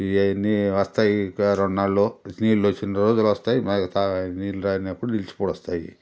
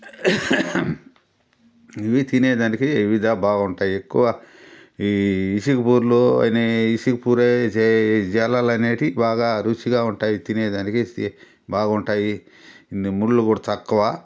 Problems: none marked